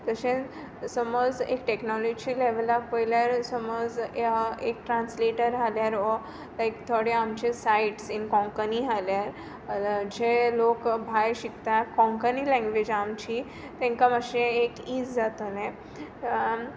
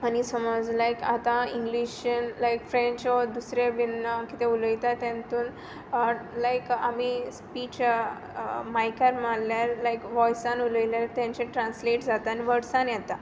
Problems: background sounds at intervals